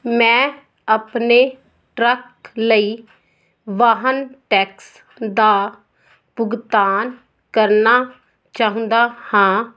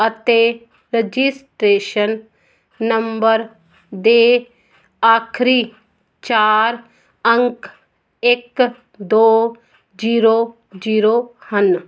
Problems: none marked